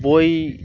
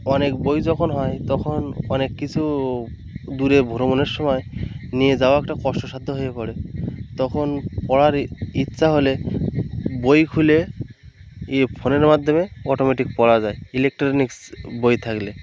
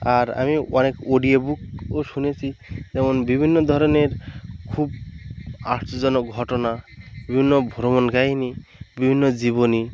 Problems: none marked